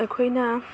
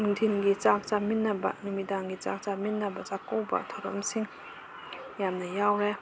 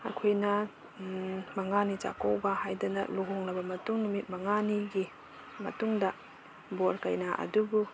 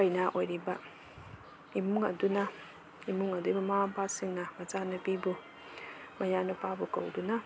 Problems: constant background noise